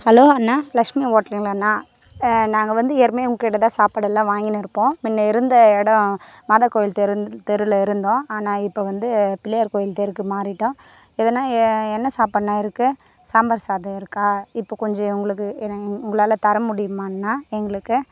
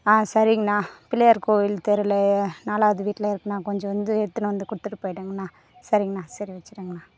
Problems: background sounds at intervals